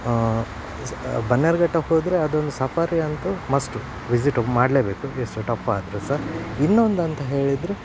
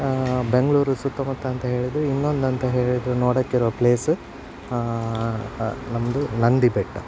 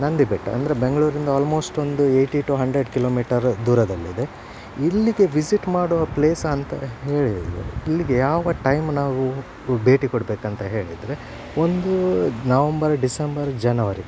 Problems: none marked